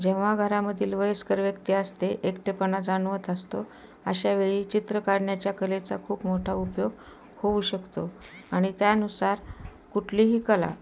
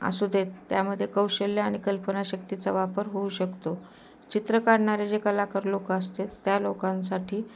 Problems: constant background noise